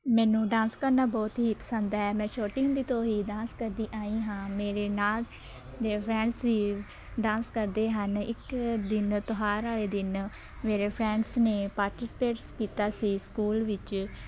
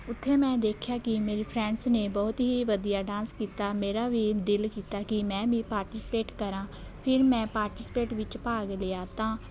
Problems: constant background noise, continuous background conversations